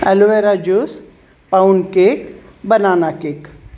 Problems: none marked